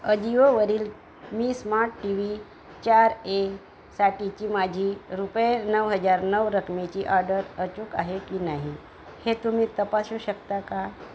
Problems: constant background noise